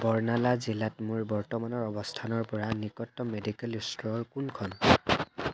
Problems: constant background noise